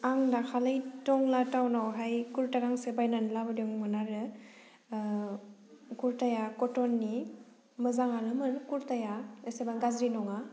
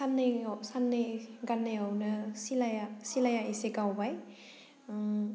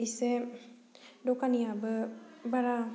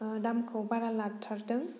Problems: none marked